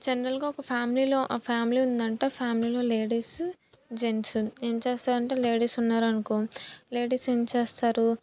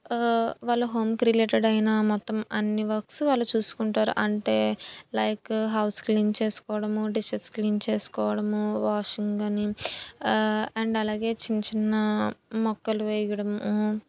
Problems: none marked